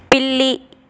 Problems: constant background noise